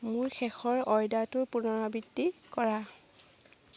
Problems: none marked